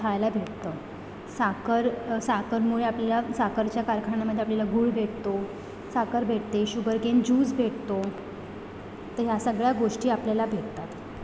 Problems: background sounds at intervals